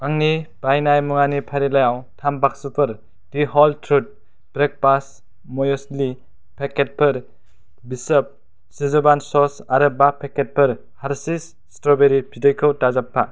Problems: background sounds at intervals